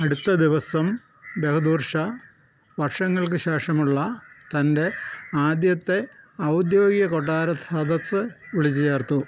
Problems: background sounds at intervals